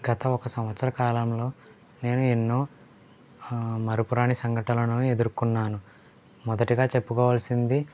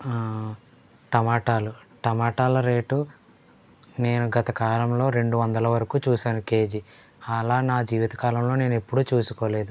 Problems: low volume